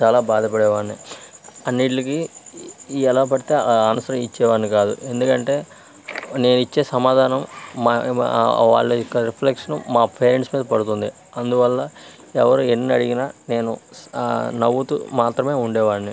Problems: none marked